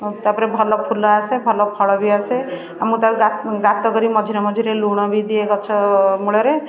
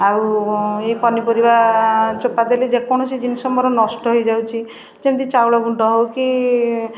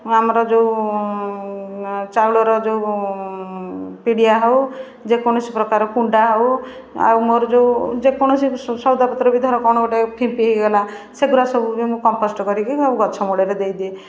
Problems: background sounds at intervals, continuous background conversations